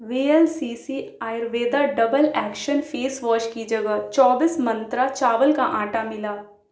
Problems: none marked